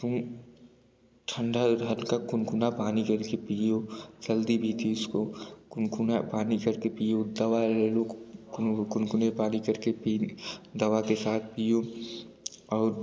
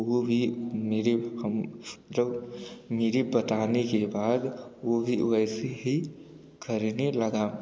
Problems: none marked